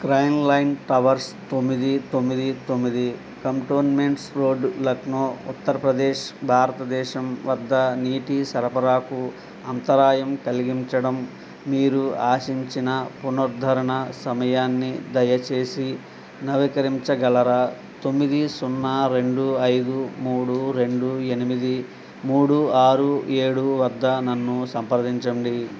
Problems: constant background noise